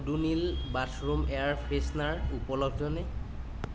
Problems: none marked